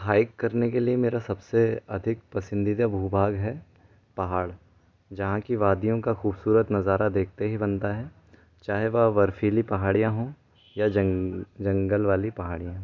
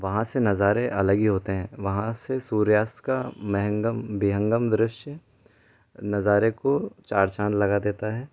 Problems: low volume